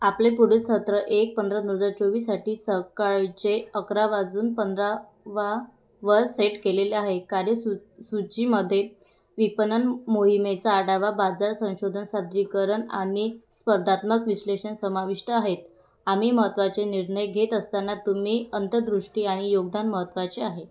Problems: background sounds at intervals